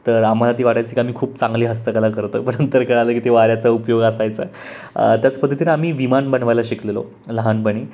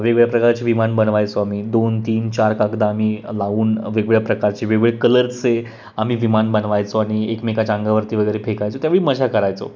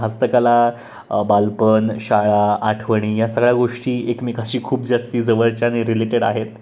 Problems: constant background noise